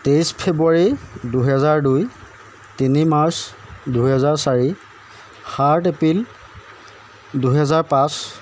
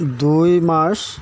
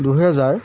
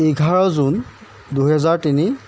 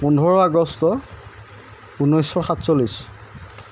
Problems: background sounds at intervals